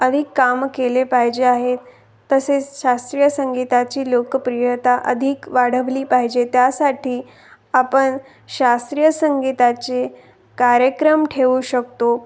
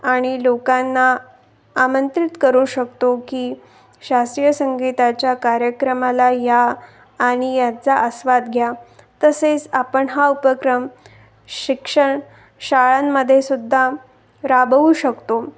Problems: none marked